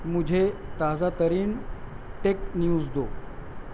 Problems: constant background noise, low volume